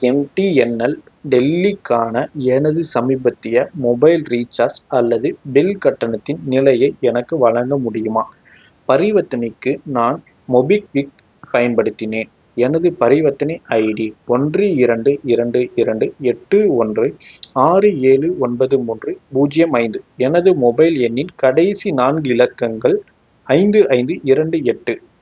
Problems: background sounds at intervals